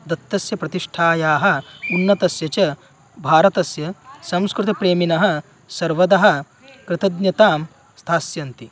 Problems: none marked